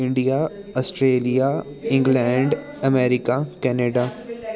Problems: continuous background conversations